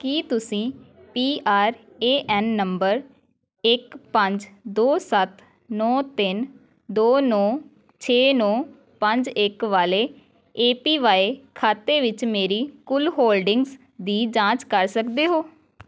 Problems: continuous background conversations